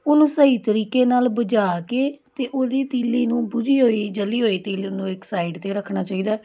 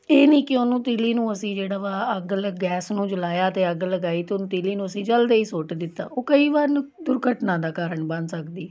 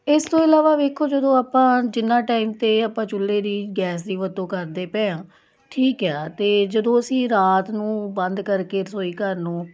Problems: none marked